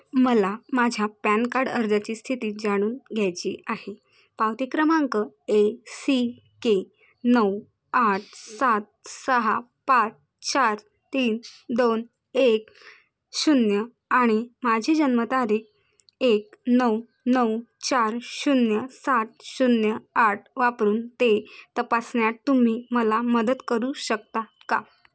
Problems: constant background noise